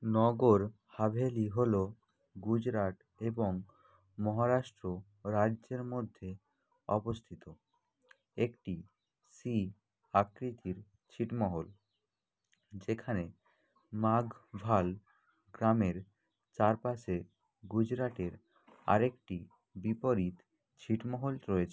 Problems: constant background noise